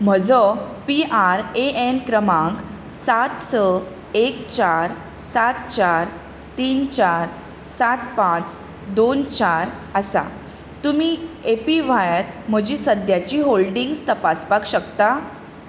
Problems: none marked